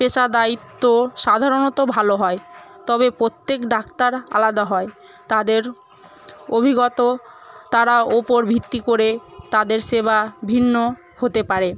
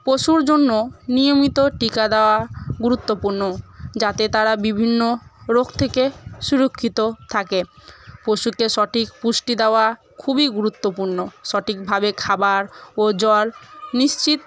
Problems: constant background noise, continuous background conversations